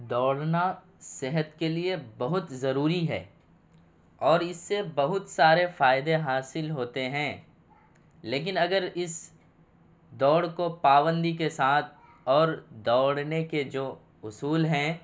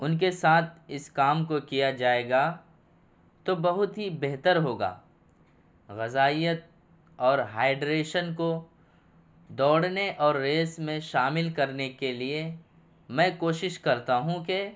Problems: none marked